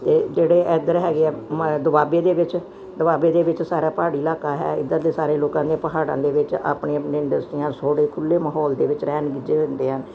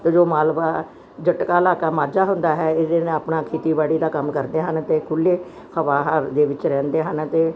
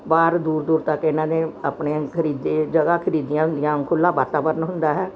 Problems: background sounds at intervals